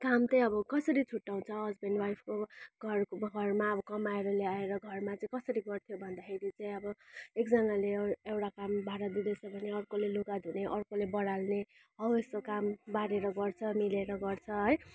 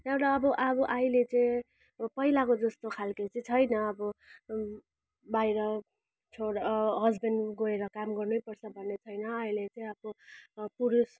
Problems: constant background noise